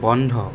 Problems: constant background noise